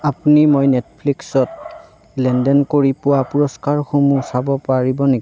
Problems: constant background noise